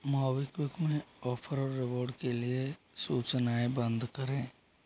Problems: constant background noise, low volume